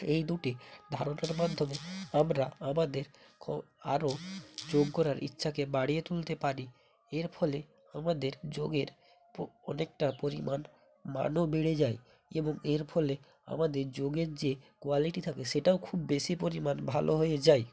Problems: background sounds at intervals